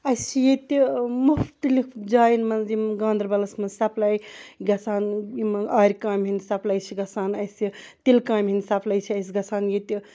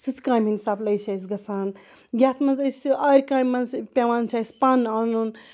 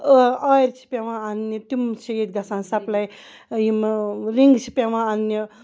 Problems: background sounds at intervals